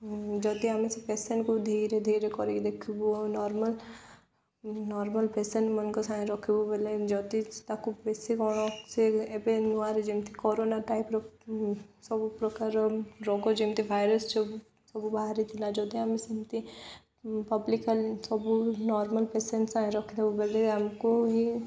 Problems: none marked